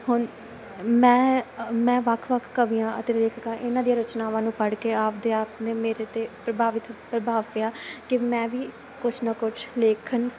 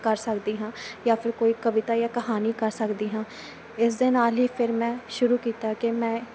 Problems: constant background noise